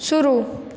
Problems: background sounds at intervals